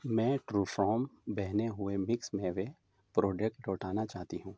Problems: none marked